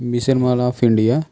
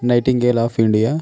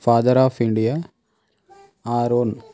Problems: none marked